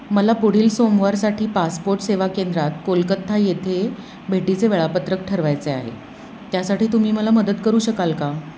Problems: constant background noise